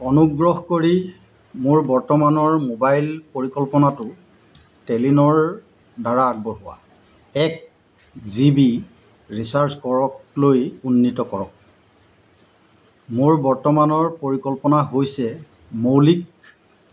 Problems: none marked